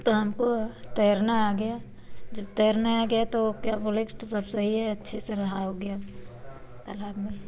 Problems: constant background noise